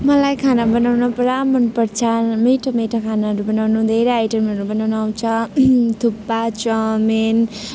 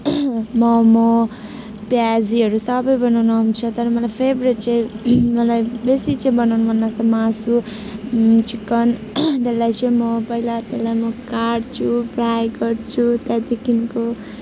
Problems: none marked